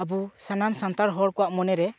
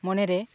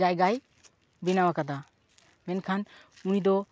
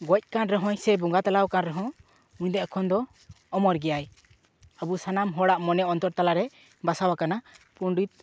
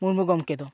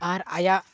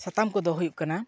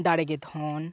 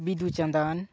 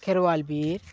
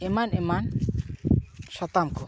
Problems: background sounds at intervals, background conversations at intervals